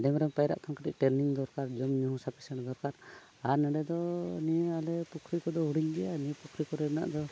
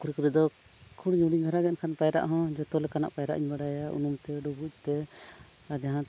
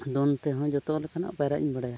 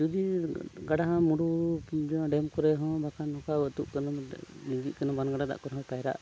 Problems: background sounds at intervals